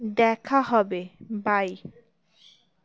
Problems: background sounds at intervals